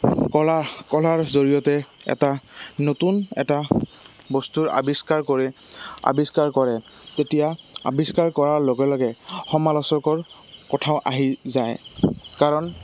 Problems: constant background noise